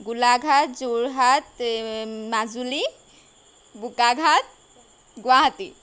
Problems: background sounds at intervals